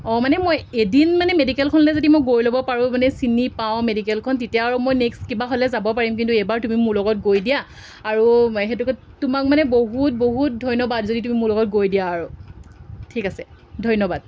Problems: constant background noise